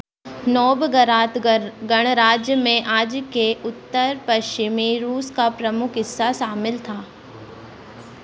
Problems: constant background noise